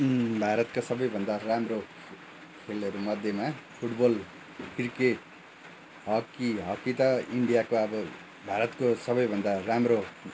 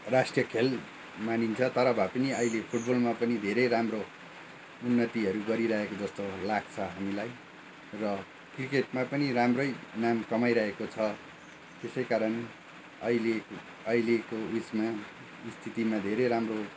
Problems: background sounds at intervals